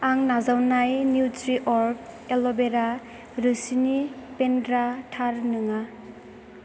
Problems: constant background noise